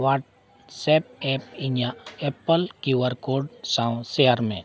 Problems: background sounds at intervals